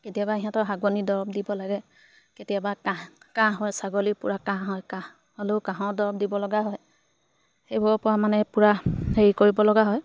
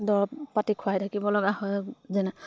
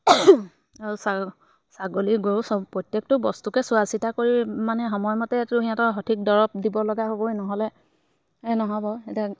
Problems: background sounds at intervals